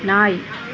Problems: constant background noise